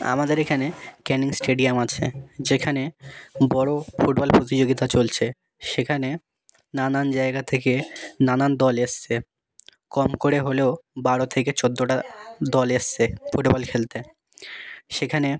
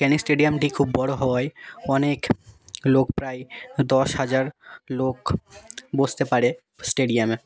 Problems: background sounds at intervals